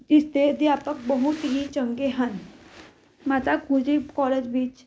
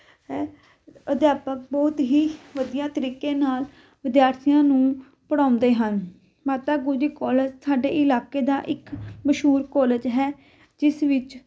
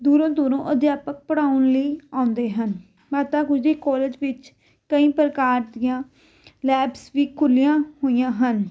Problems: background sounds at intervals